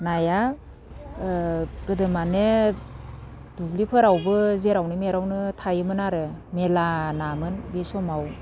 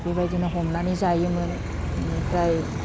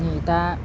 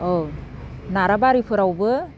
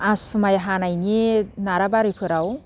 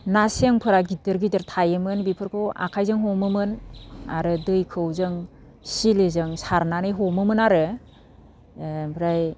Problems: none marked